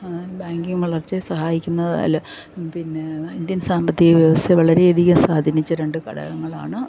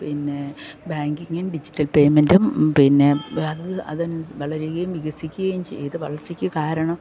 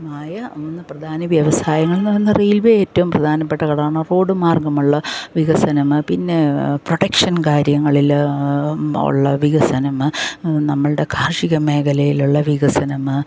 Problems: background sounds at intervals